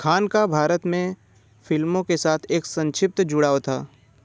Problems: constant background noise